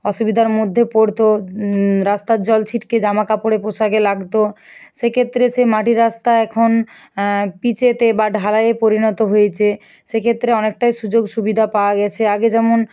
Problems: none marked